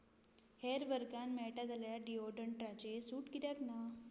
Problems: none marked